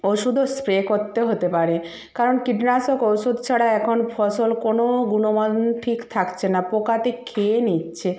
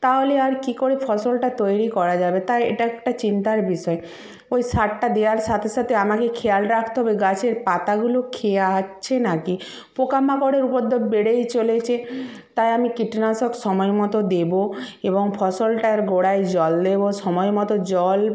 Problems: none marked